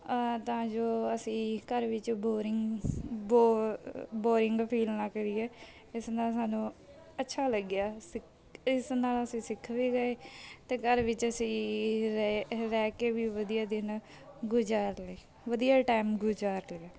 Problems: background sounds at intervals